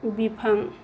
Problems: none marked